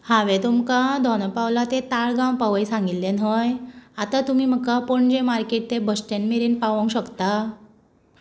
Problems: none marked